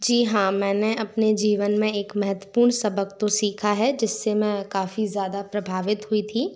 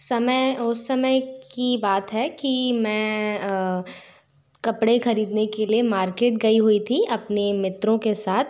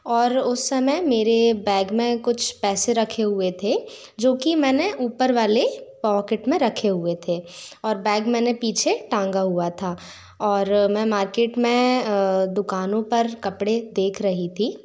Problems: none marked